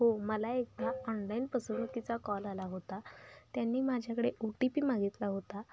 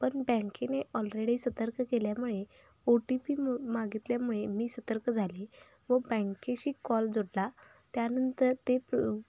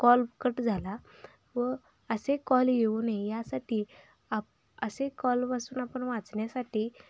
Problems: background sounds at intervals